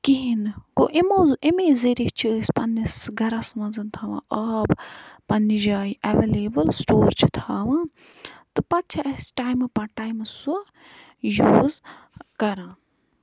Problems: none marked